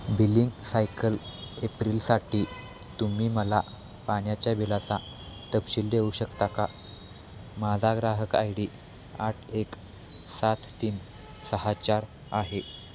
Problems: constant background noise